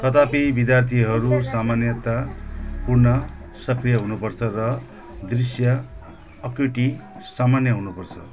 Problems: constant background noise